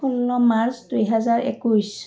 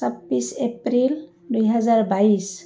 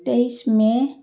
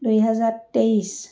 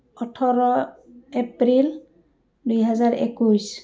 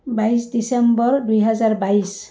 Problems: continuous background conversations